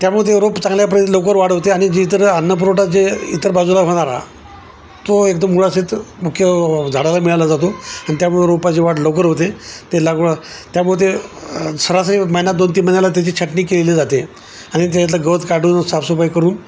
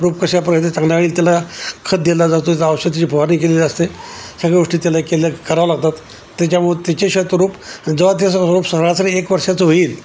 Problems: constant background noise, background conversations at intervals